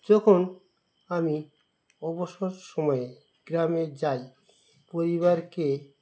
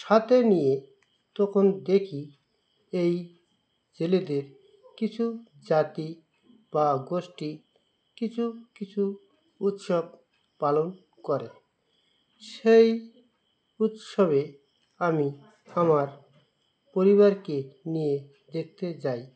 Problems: constant background noise